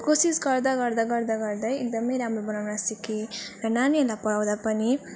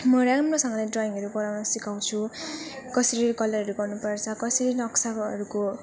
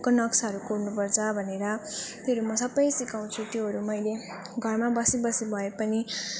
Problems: none marked